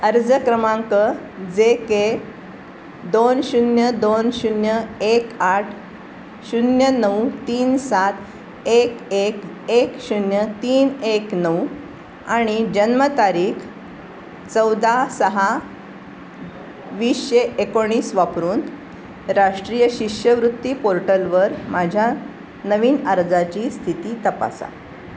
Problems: constant background noise